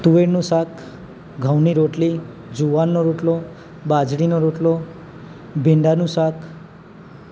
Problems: constant background noise